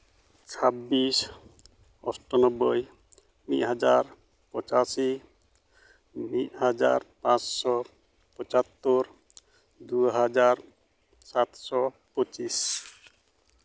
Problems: background sounds at intervals